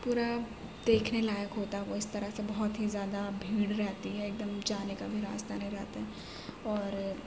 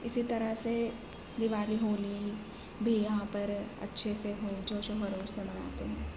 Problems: constant background noise, low volume